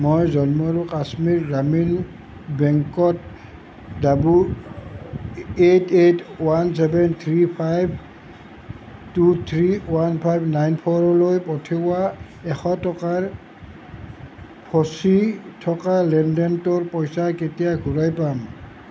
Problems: constant background noise